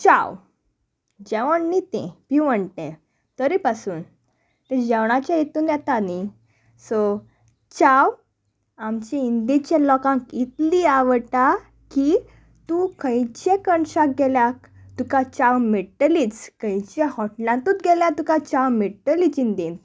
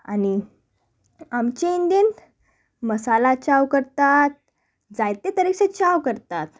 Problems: none marked